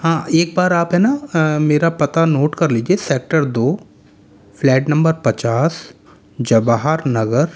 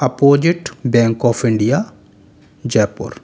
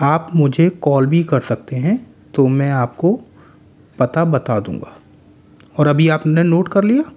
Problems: constant background noise, echo